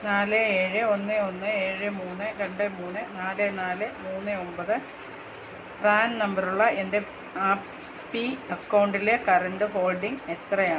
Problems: constant background noise